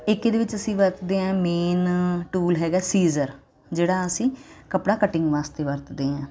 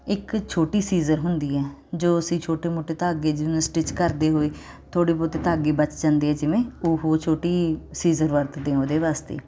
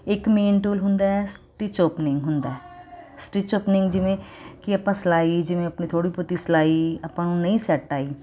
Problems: constant background noise